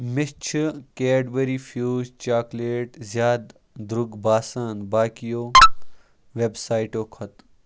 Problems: background sounds at intervals